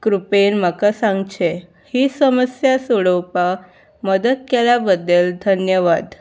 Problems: background sounds at intervals